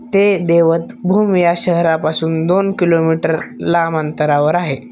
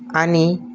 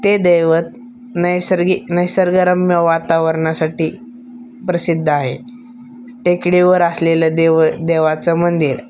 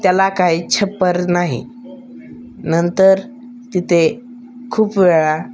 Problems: background sounds at intervals, background conversations at intervals